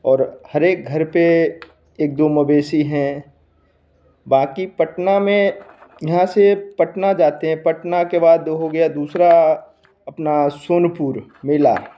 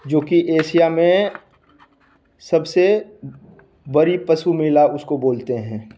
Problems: none marked